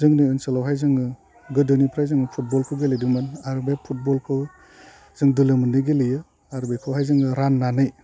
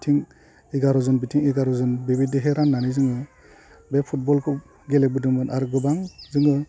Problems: low volume